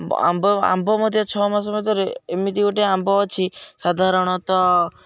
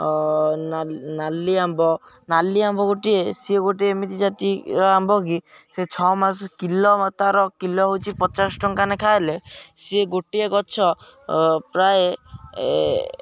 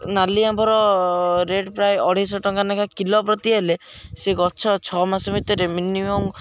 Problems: background sounds at intervals